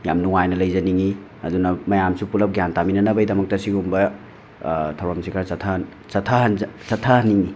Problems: constant background noise, background conversations at intervals